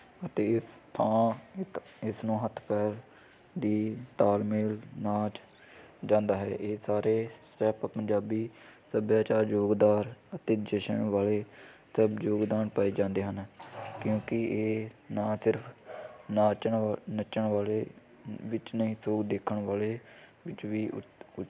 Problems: constant background noise